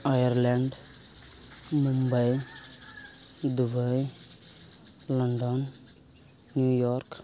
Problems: none marked